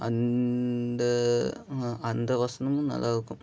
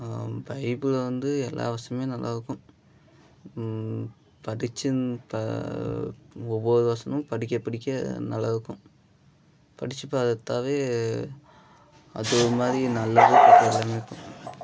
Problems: background sounds at intervals